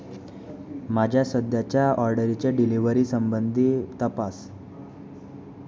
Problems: background conversations at intervals